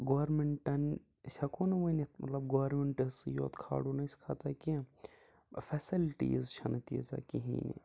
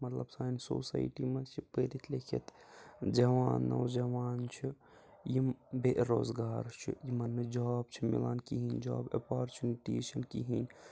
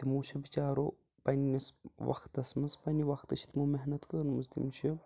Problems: background sounds at intervals, low volume